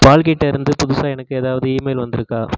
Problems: none marked